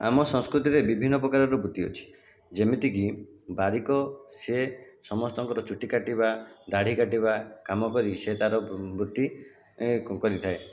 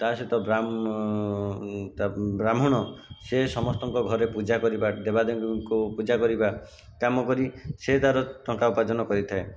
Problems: constant background noise